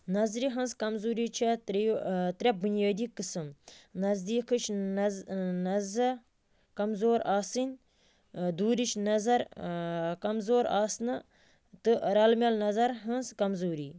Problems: constant background noise